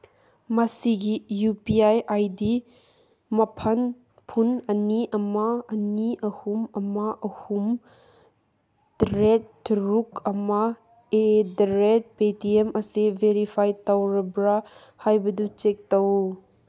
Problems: none marked